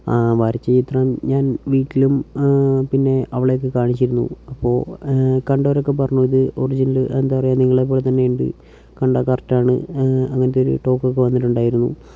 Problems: none marked